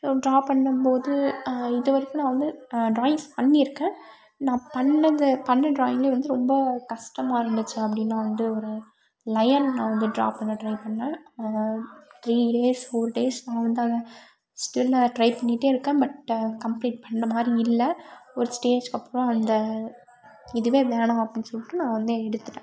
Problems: background sounds at intervals